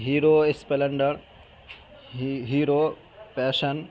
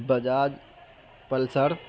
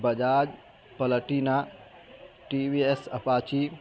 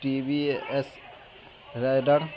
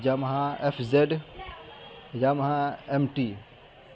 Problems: constant background noise